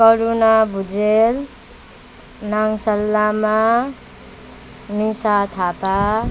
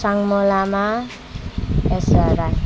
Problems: continuous background conversations